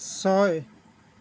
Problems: none marked